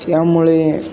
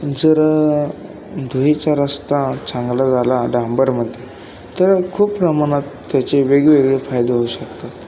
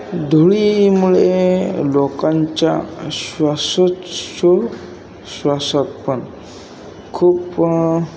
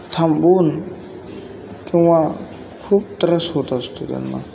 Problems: constant background noise, background conversations at intervals